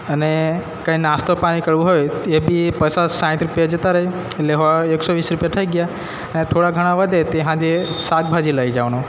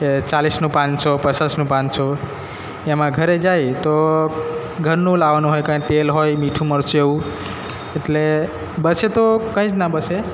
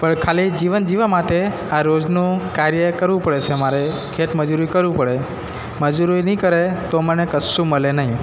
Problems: background sounds at intervals